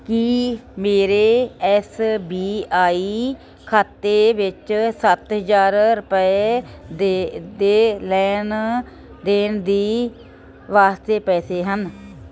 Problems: none marked